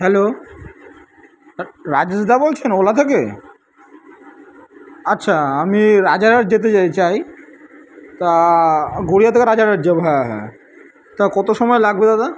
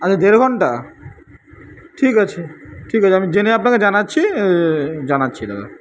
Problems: constant background noise